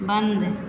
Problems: constant background noise